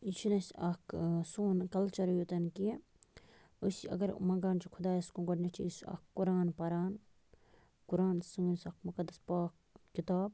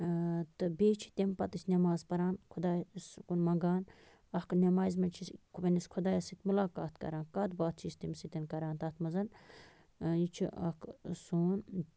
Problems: constant background noise